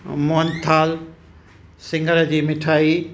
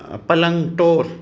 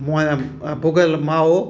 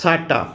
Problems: constant background noise